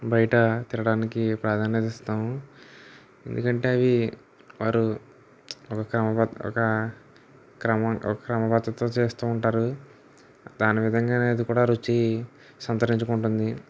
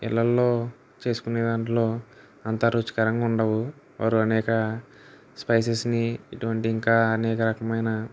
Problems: none marked